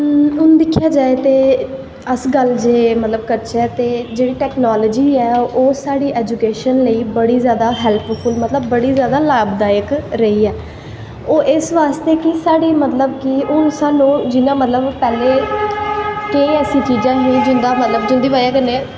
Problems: constant background noise, echo